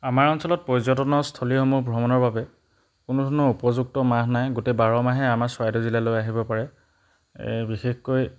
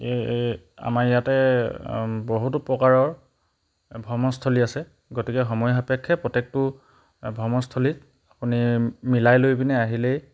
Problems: background sounds at intervals